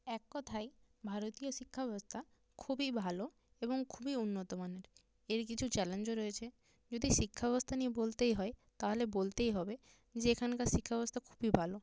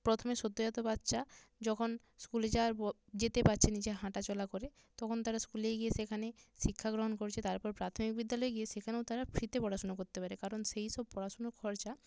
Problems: low volume